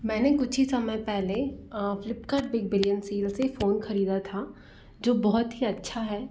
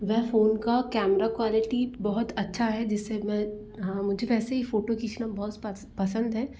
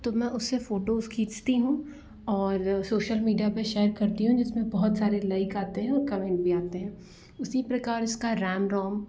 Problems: none marked